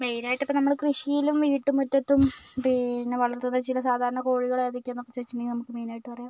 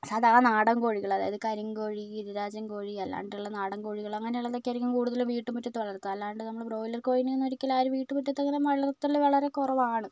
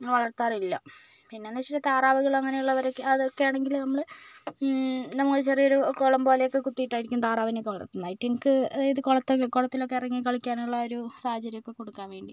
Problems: none marked